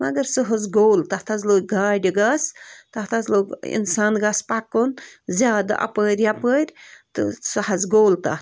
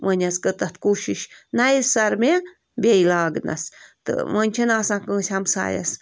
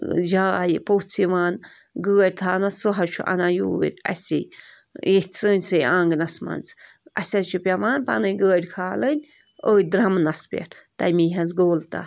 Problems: constant background noise